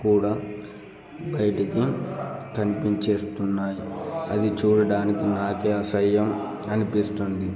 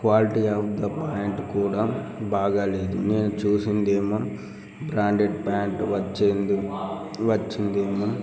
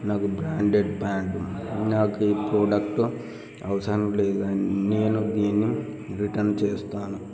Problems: background conversations at intervals